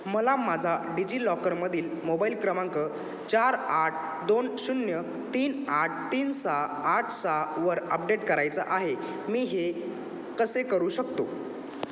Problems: none marked